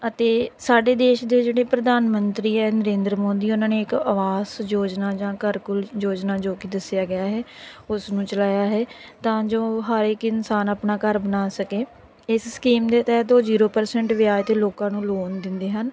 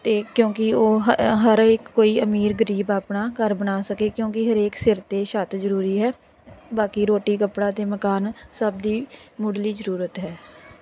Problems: none marked